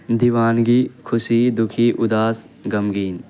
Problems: constant background noise